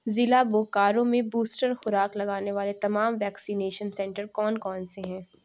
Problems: constant background noise